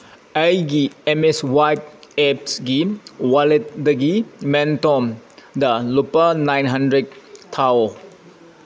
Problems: constant background noise